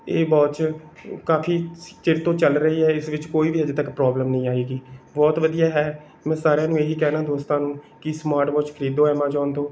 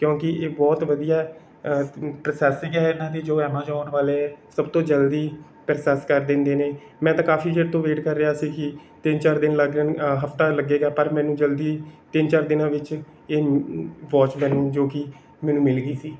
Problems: none marked